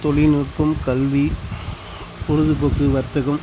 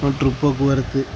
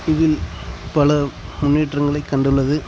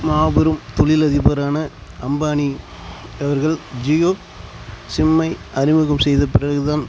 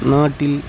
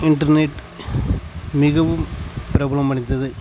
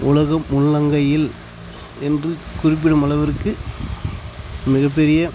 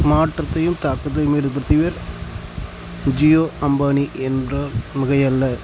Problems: constant background noise